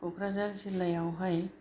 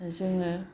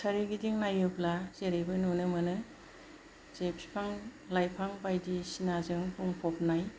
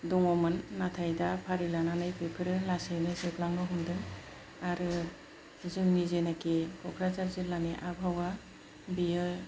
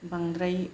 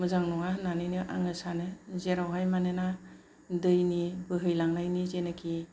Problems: low volume